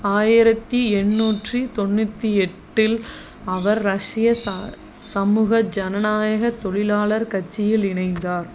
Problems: constant background noise